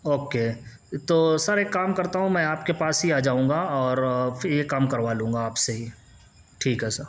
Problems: constant background noise